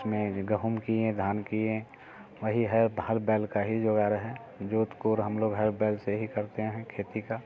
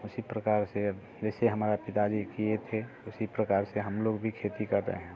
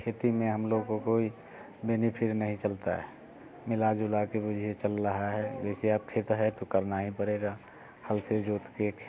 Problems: constant background noise